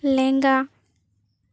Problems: none marked